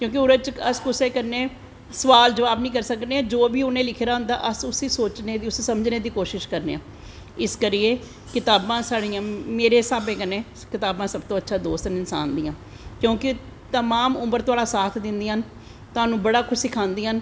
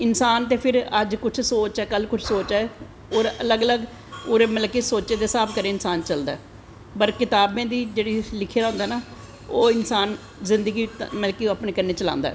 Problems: constant background noise, echo